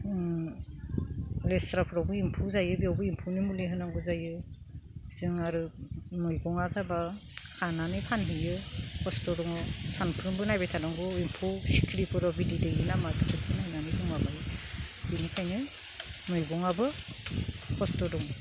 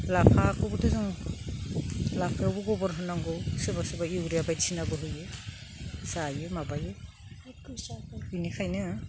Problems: none marked